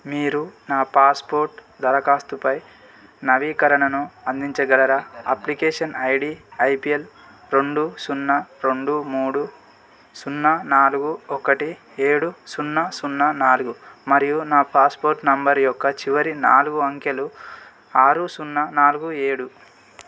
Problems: constant background noise